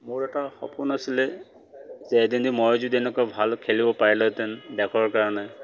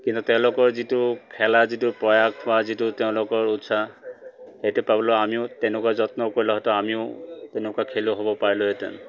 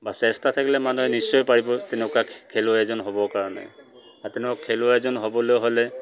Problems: none marked